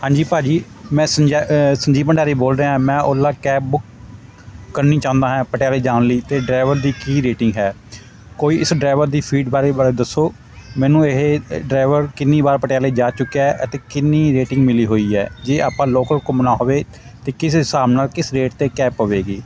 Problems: constant background noise, background conversations at intervals